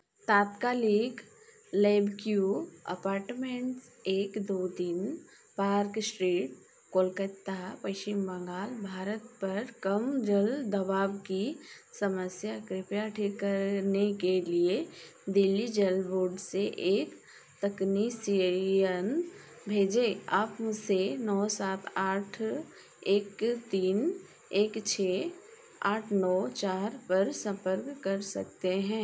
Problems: background sounds at intervals